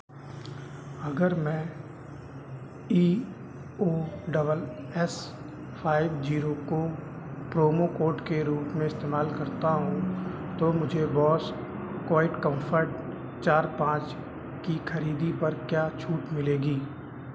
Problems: none marked